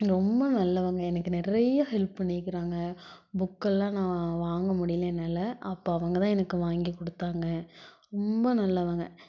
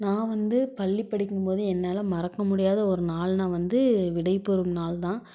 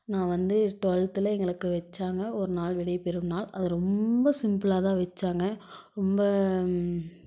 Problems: none marked